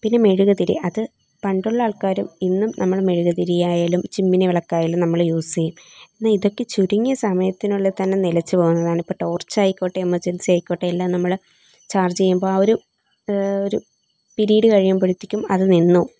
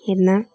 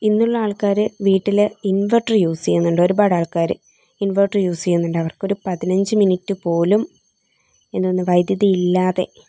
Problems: background sounds at intervals